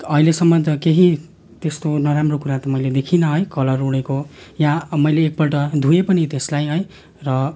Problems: constant background noise, continuous background conversations